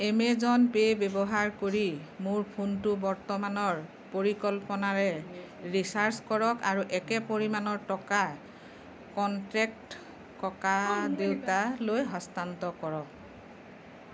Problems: background conversations at intervals